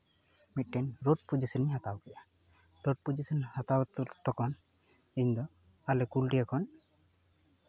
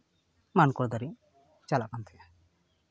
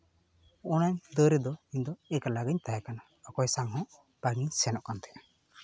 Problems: none marked